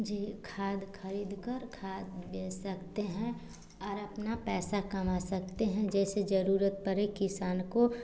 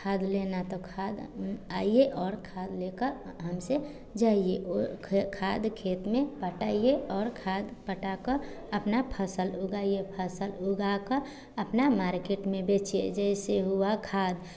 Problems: none marked